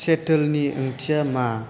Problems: constant background noise